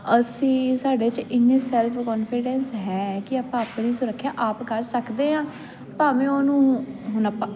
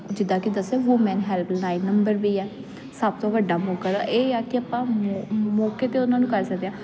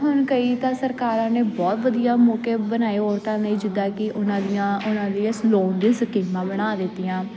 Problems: constant background noise